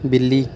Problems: none marked